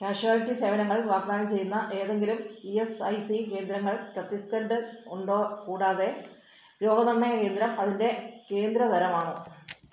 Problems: background sounds at intervals